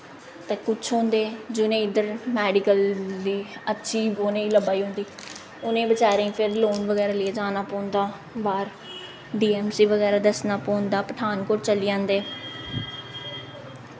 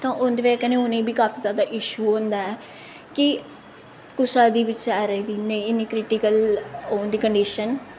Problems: echo